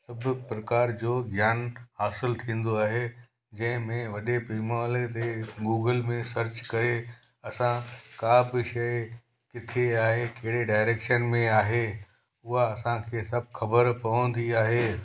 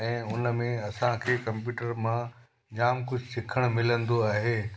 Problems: constant background noise, echo